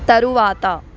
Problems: constant background noise, background conversations at intervals